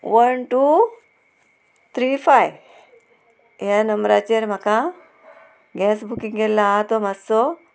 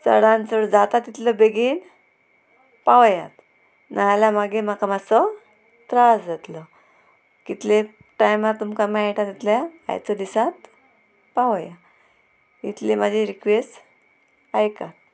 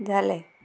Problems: constant background noise, background conversations at intervals